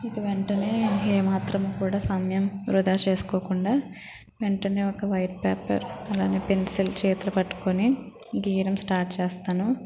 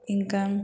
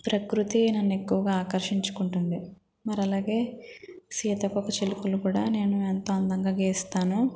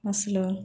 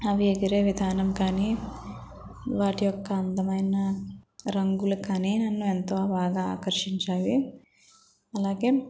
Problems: constant background noise, background conversations at intervals